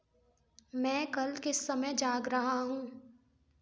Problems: background sounds at intervals